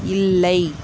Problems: none marked